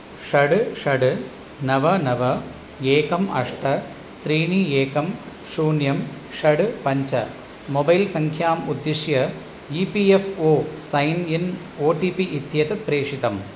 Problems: constant background noise